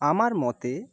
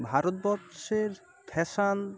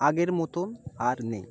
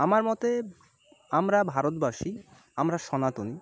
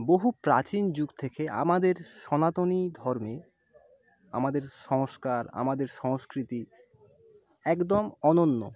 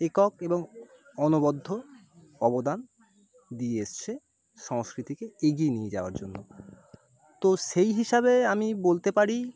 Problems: none marked